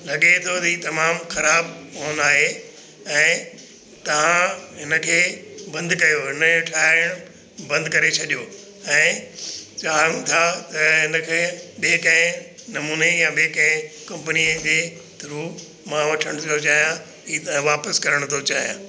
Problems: constant background noise, echo